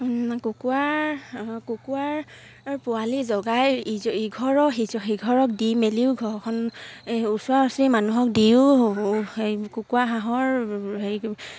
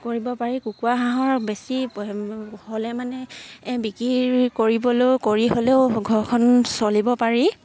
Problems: background sounds at intervals